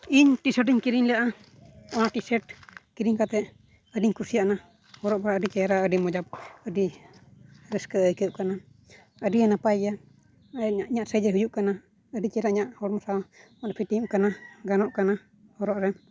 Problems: low volume